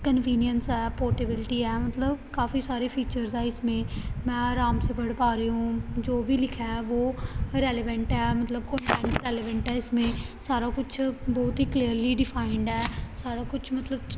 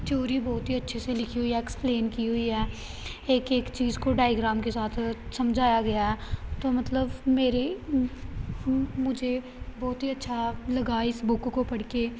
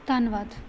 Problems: none marked